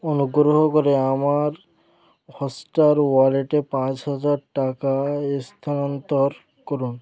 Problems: continuous background conversations